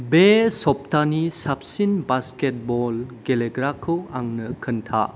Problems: none marked